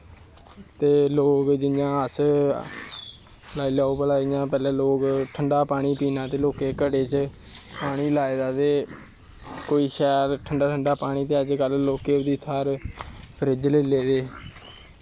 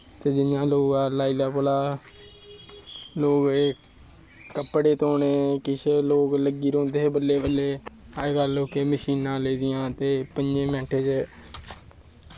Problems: none marked